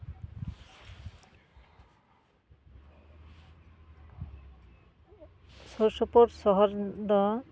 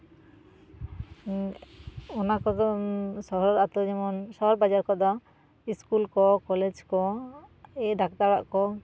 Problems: background sounds at intervals